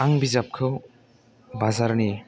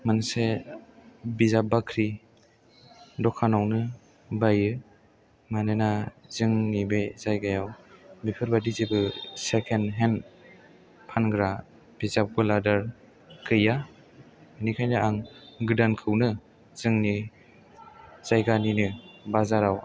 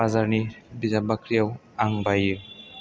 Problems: low volume